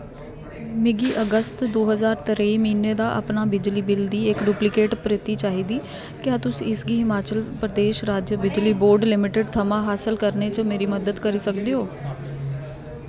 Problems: constant background noise